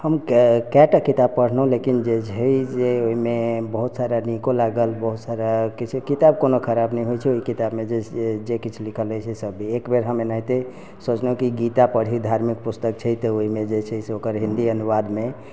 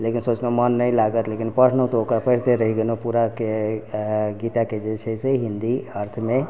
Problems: background sounds at intervals